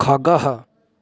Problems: none marked